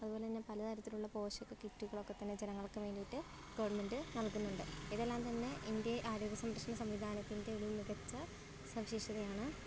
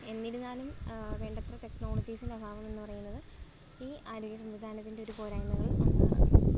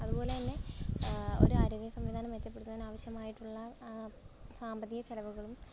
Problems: background sounds at intervals